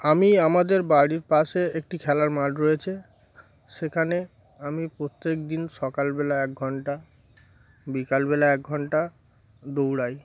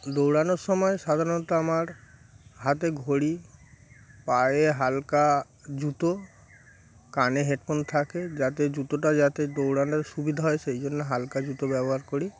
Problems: background sounds at intervals